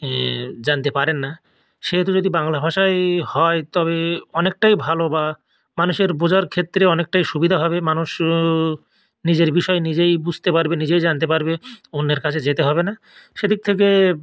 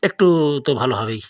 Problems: none marked